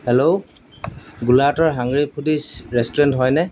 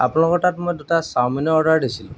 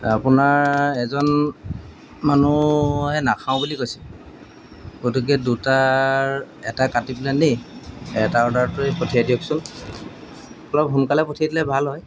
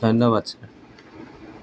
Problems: background sounds at intervals